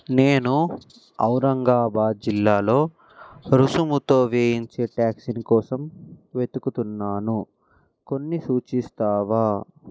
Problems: none marked